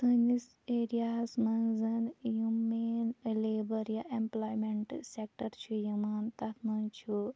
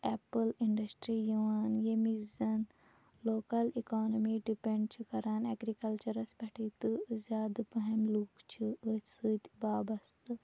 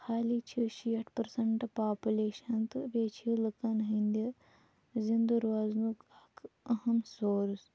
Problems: none marked